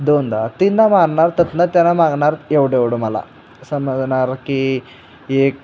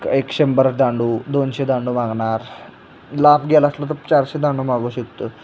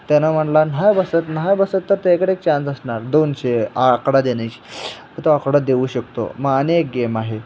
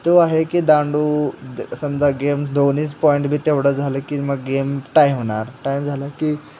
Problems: none marked